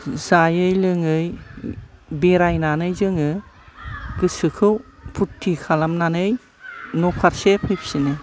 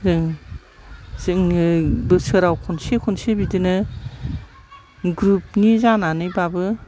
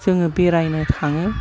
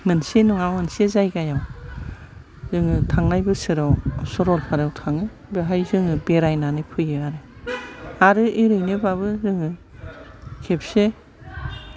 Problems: low volume